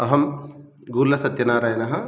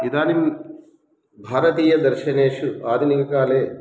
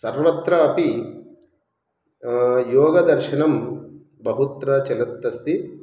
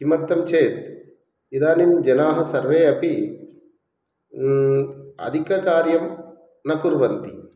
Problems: background sounds at intervals